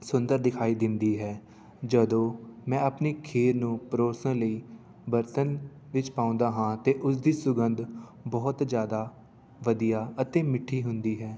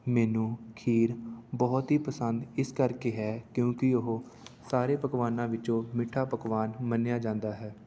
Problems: none marked